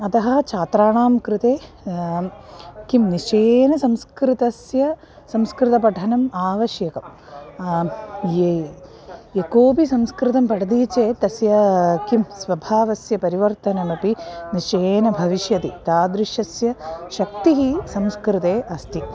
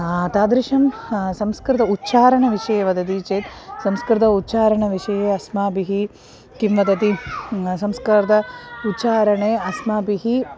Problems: none marked